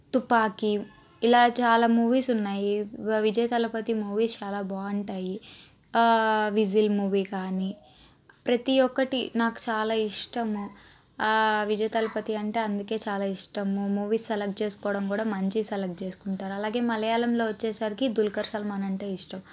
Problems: constant background noise